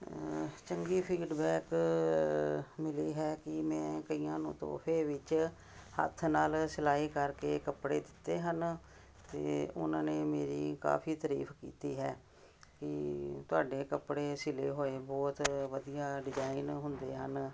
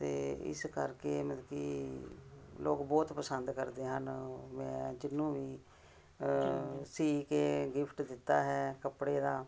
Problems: none marked